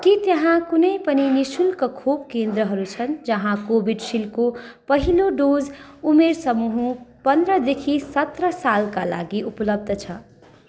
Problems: constant background noise